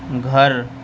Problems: constant background noise